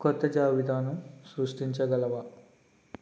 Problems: constant background noise